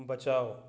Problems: low volume